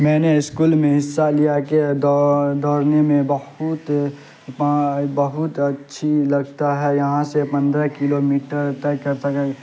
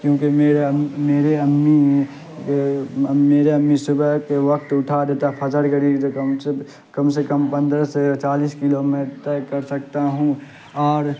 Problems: constant background noise